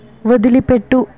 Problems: none marked